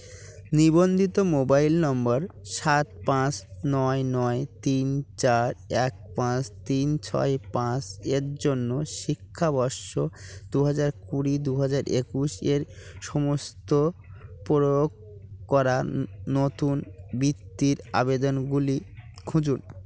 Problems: none marked